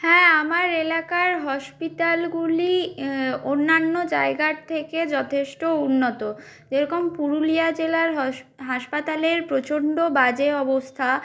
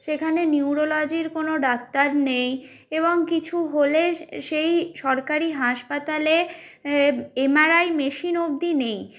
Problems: none marked